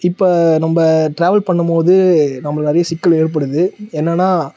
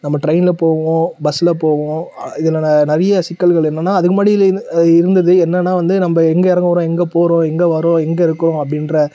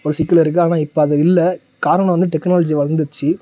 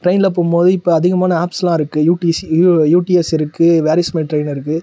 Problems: none marked